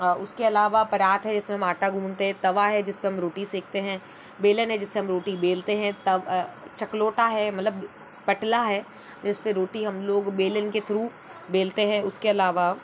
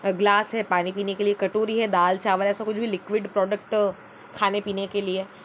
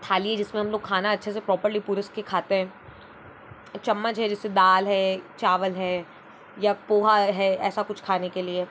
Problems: none marked